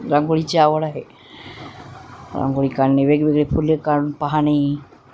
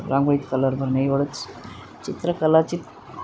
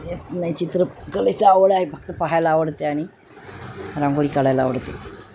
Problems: constant background noise